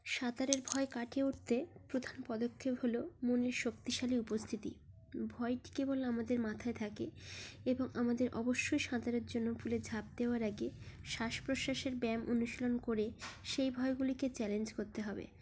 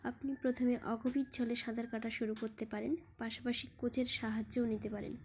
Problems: background sounds at intervals